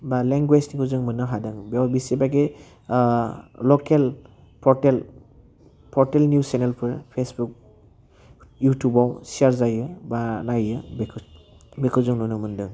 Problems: low volume